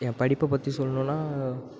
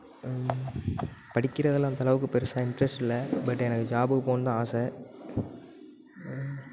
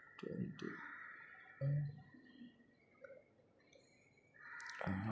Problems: background sounds at intervals